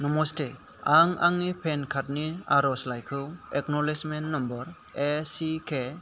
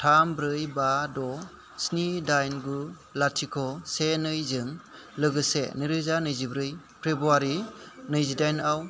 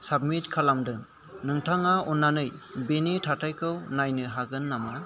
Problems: none marked